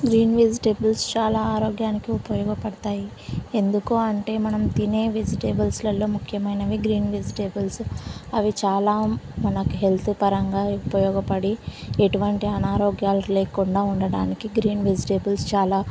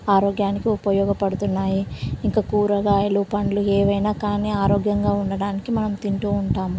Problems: constant background noise